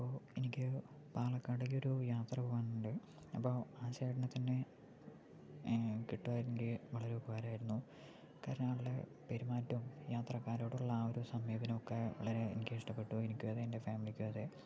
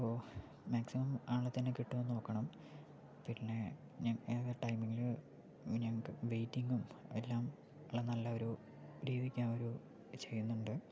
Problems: low volume